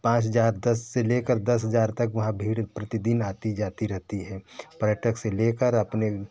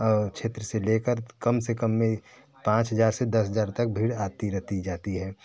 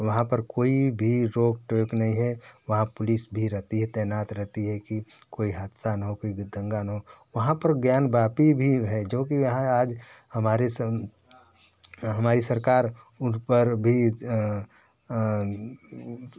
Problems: none marked